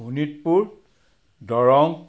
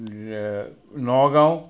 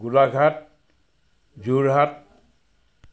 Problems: background sounds at intervals